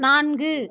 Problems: none marked